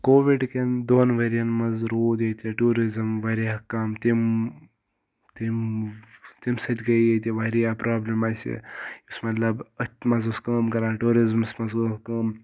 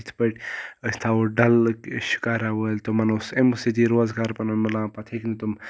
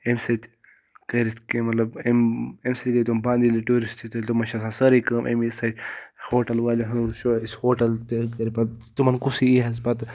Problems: background sounds at intervals